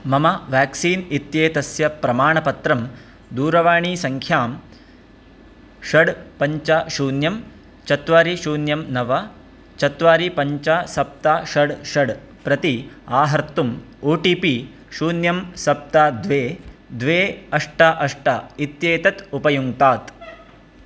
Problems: constant background noise